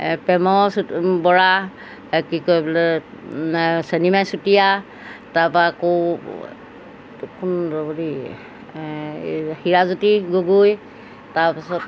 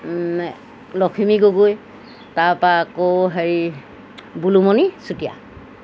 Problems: background sounds at intervals